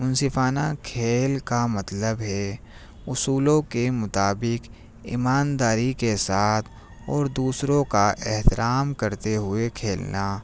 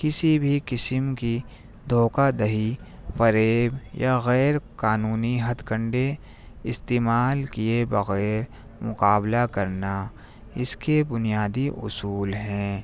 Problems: none marked